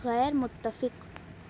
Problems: none marked